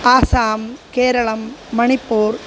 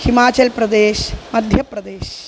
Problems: constant background noise